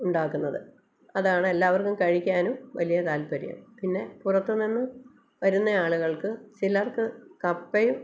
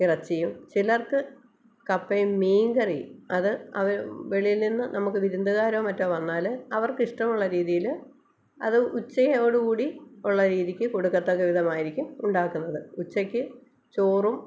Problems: none marked